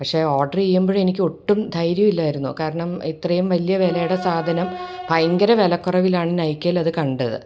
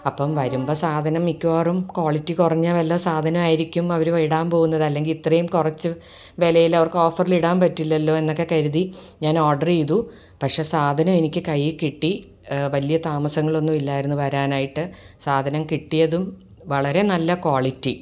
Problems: background sounds at intervals